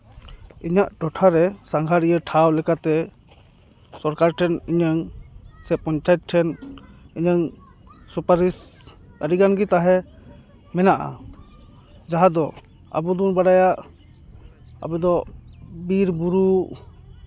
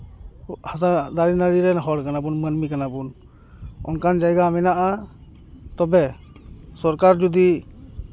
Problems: background conversations at intervals